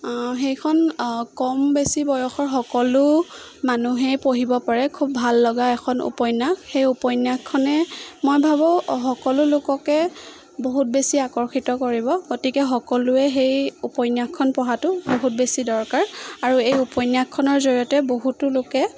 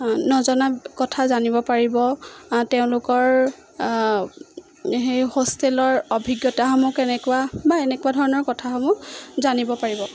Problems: constant background noise